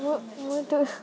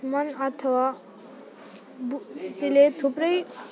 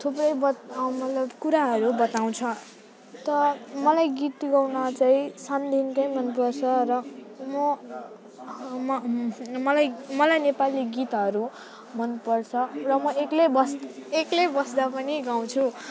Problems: constant background noise